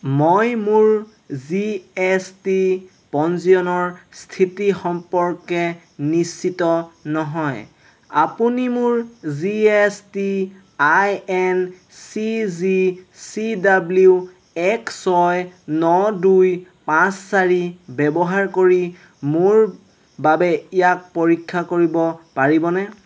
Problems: constant background noise